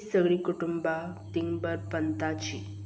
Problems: background sounds at intervals